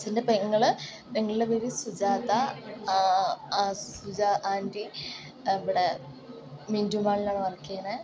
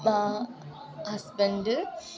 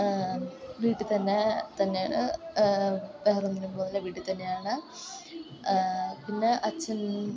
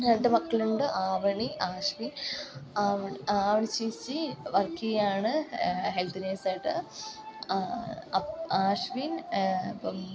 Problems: constant background noise